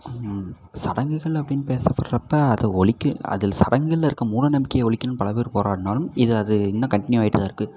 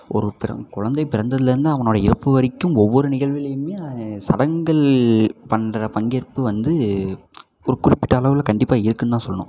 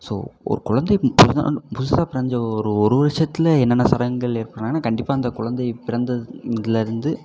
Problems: background sounds at intervals